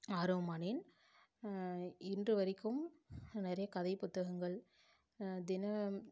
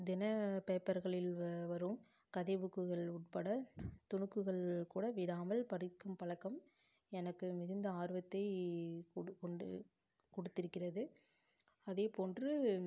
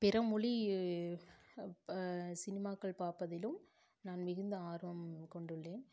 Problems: low volume